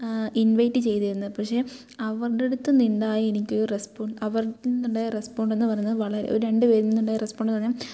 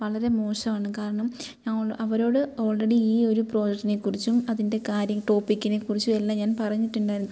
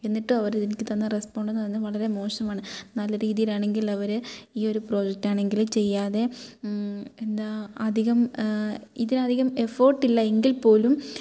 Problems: background sounds at intervals